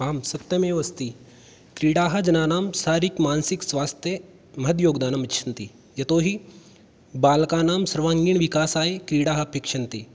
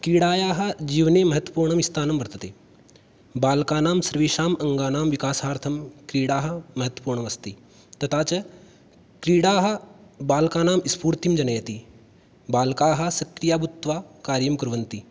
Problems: none marked